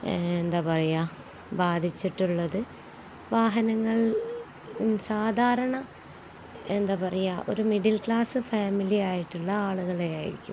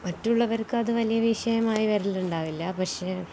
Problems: none marked